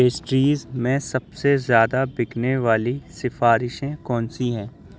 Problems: background sounds at intervals